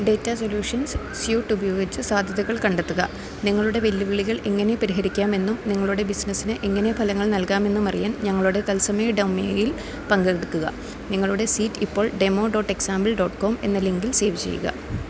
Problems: none marked